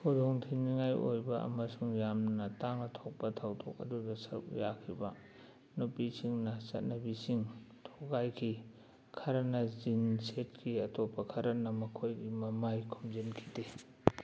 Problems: background sounds at intervals